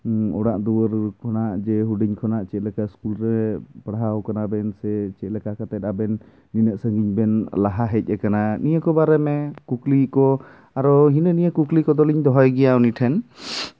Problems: background sounds at intervals